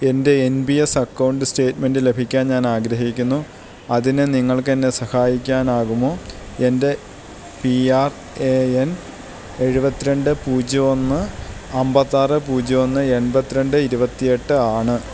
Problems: constant background noise